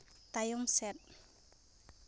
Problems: none marked